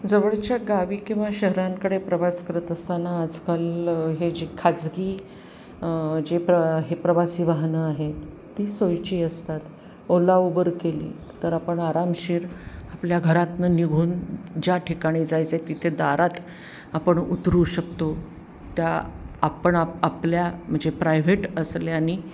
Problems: constant background noise